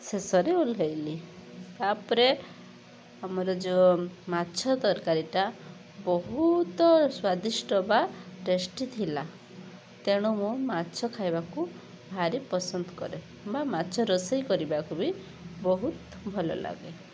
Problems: constant background noise